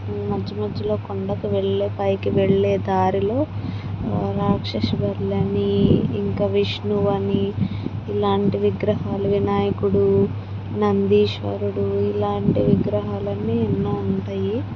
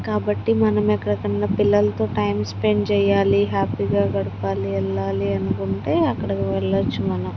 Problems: constant background noise, low volume